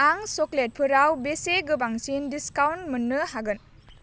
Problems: none marked